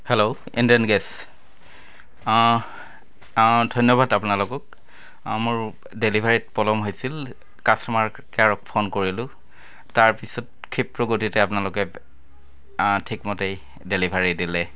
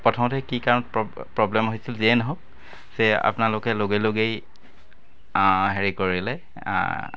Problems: constant background noise, continuous background conversations